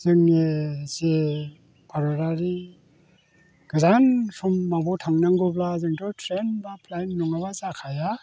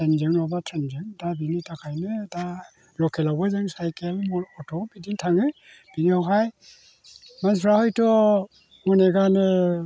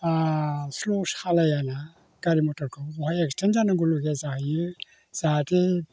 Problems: none marked